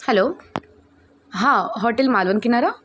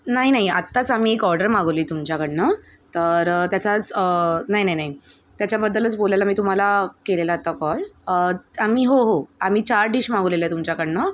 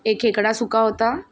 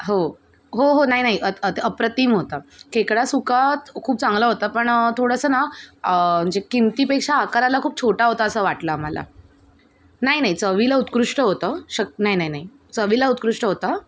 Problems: none marked